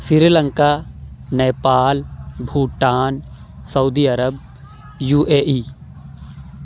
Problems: none marked